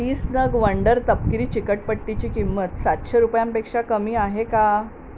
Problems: none marked